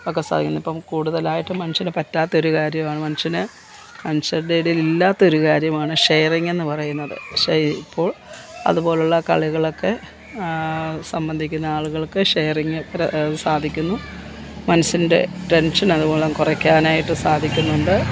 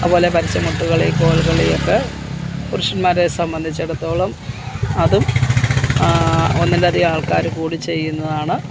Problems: constant background noise